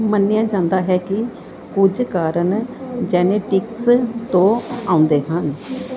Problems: none marked